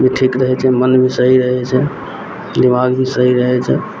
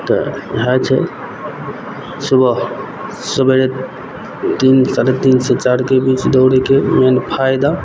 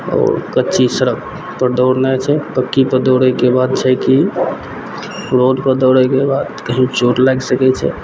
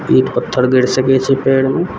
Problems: background sounds at intervals